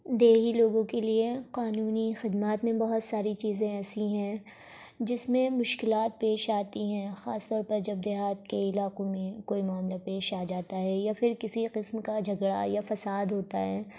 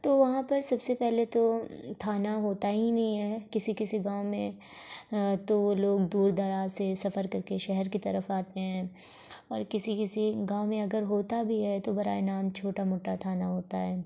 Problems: constant background noise